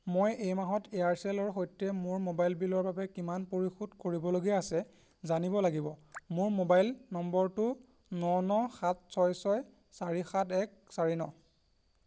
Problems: constant background noise